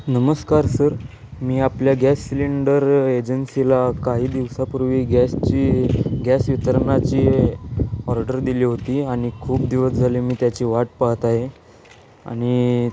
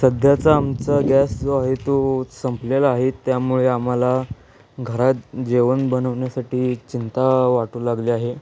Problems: constant background noise